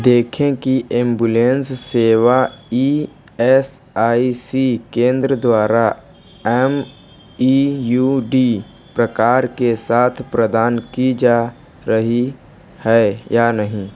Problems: background sounds at intervals